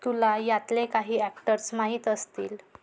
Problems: background sounds at intervals